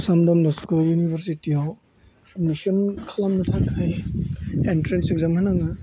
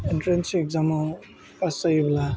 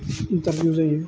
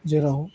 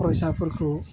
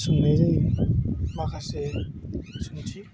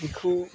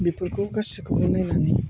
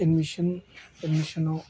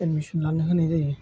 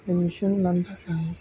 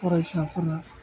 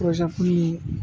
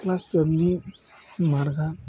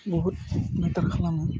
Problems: low volume